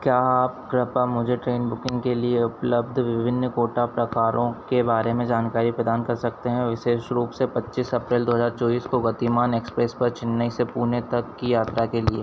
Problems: constant background noise